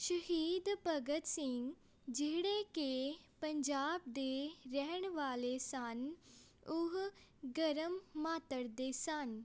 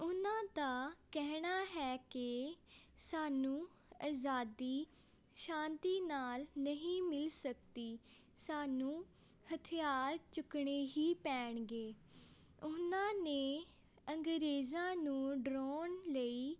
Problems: background sounds at intervals